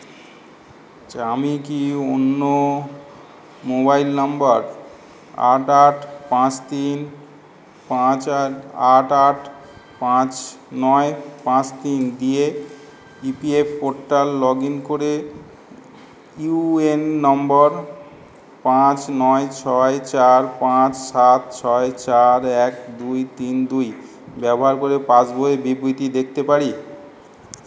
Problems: background sounds at intervals